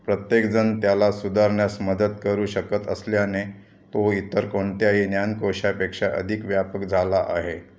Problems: constant background noise, continuous background conversations